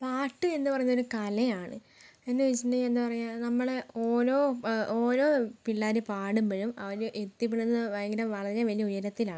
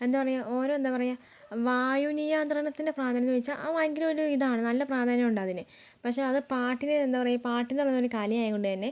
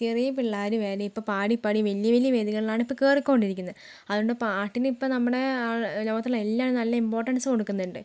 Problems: low volume